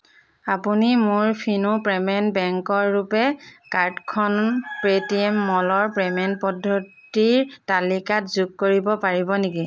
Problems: background sounds at intervals